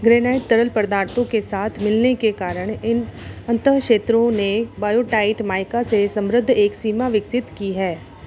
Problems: constant background noise